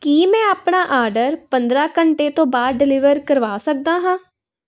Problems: background sounds at intervals